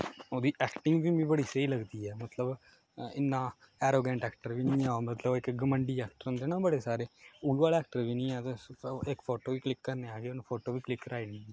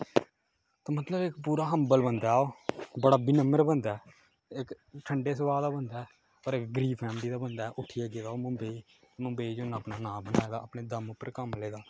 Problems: constant background noise